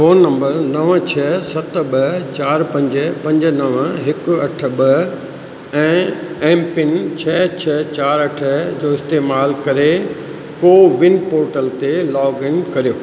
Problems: constant background noise, echo